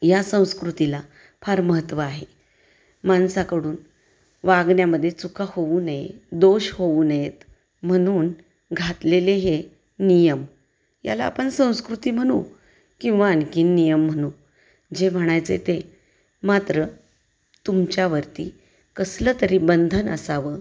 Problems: constant background noise